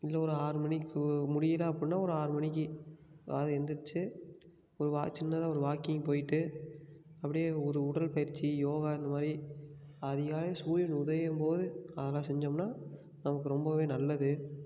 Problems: background sounds at intervals, background conversations at intervals